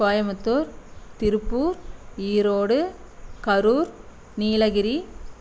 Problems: none marked